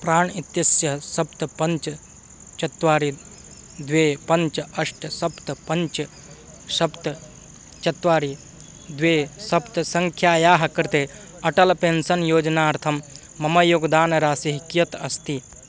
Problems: constant background noise